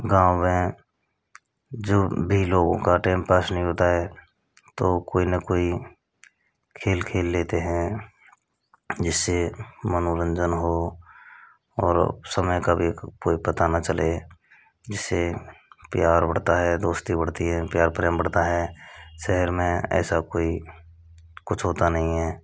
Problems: constant background noise